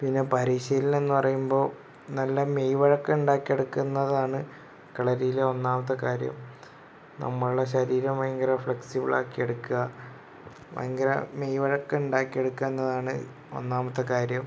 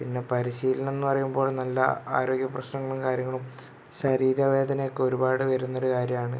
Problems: none marked